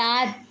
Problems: background sounds at intervals